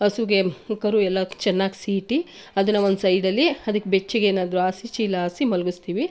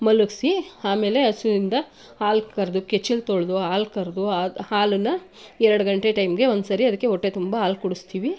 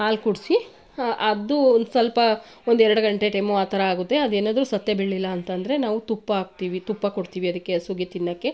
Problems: none marked